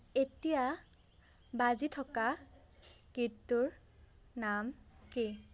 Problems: none marked